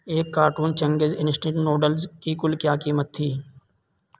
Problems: constant background noise